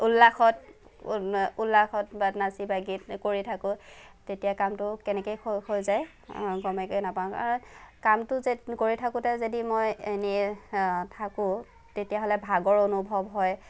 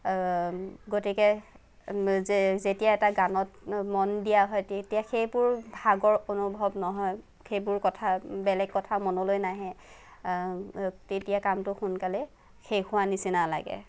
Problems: none marked